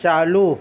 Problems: constant background noise